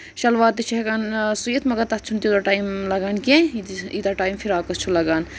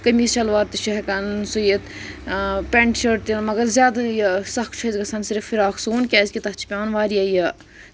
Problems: constant background noise